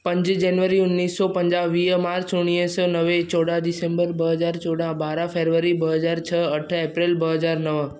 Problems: none marked